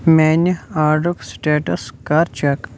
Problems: constant background noise